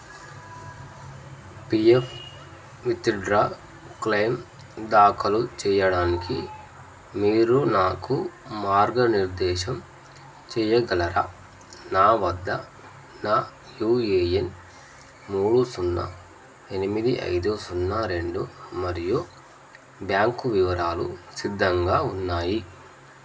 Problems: constant background noise